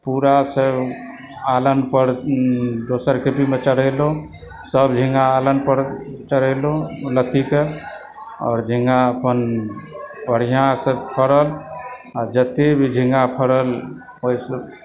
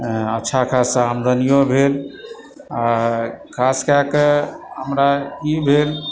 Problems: background sounds at intervals, continuous background conversations